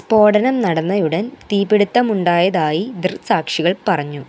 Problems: constant background noise